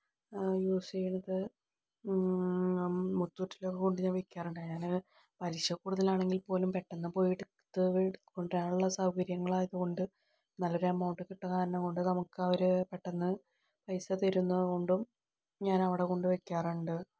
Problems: low volume